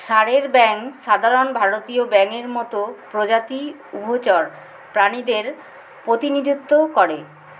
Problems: constant background noise